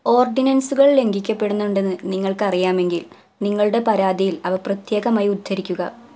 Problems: none marked